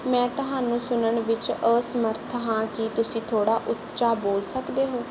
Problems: background sounds at intervals